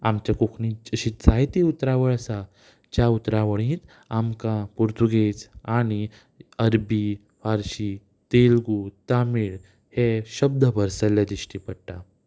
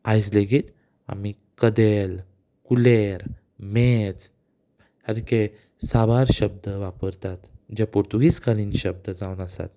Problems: none marked